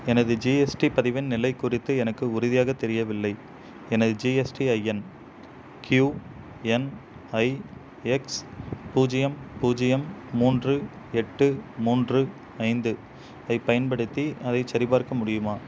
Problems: none marked